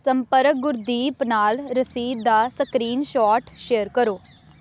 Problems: constant background noise